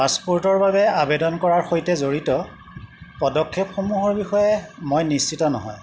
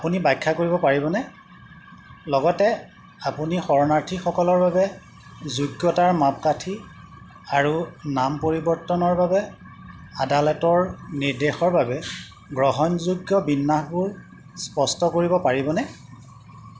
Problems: constant background noise